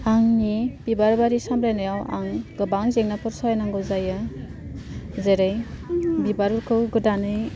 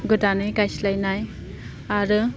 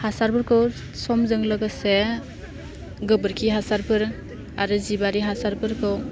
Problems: constant background noise